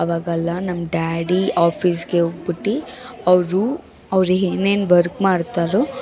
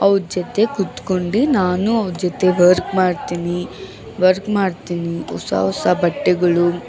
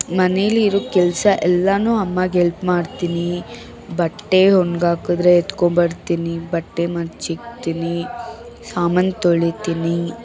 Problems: background sounds at intervals, background conversations at intervals